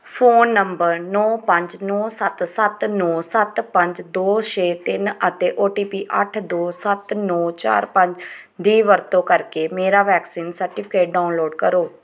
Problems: background sounds at intervals